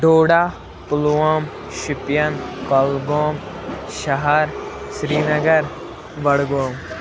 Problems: constant background noise, background conversations at intervals